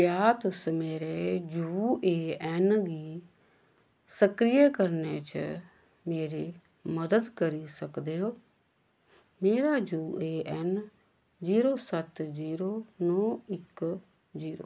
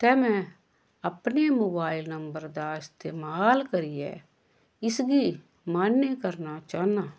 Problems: none marked